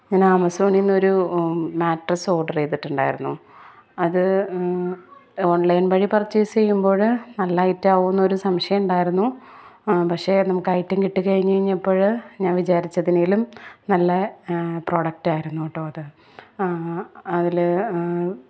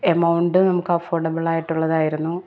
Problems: none marked